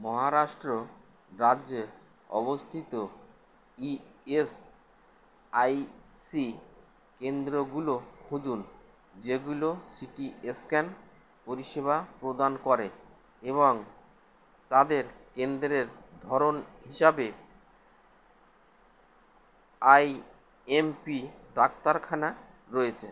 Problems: constant background noise